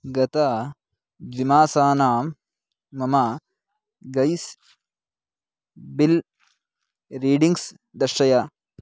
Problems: none marked